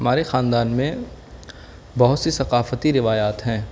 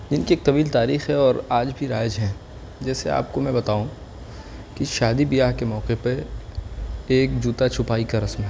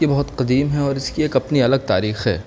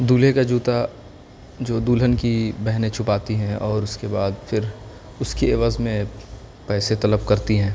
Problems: constant background noise, background conversations at intervals